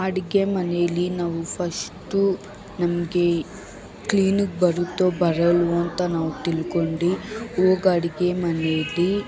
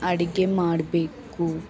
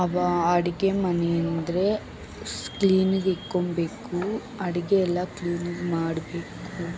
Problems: none marked